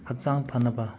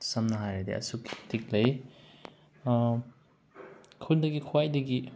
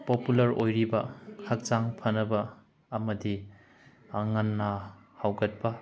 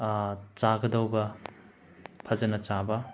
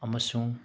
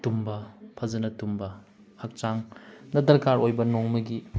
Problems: background sounds at intervals